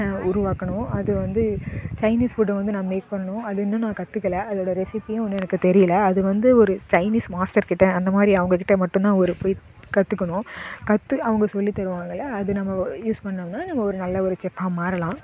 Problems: constant background noise, background conversations at intervals